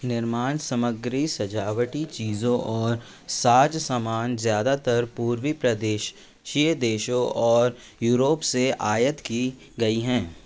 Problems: constant background noise